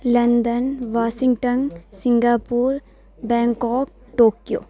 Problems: none marked